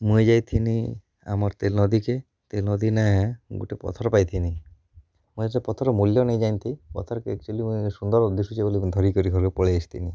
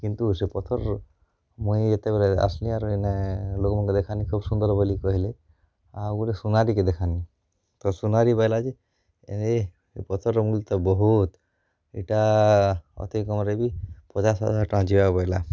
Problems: none marked